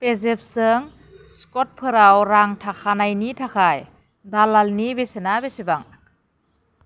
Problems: none marked